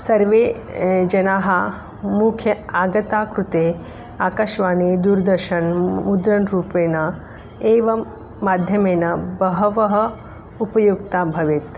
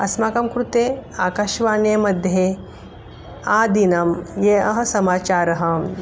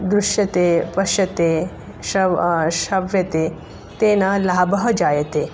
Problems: none marked